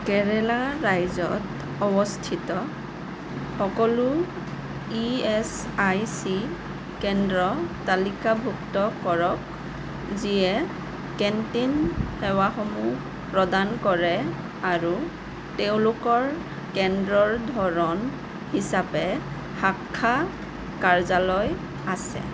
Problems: constant background noise